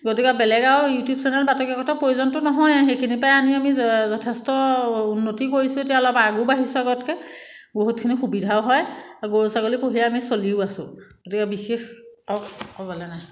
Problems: none marked